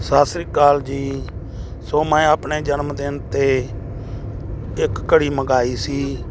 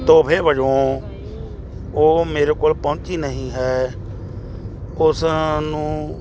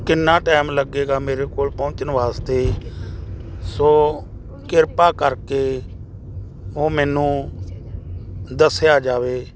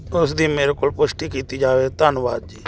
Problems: none marked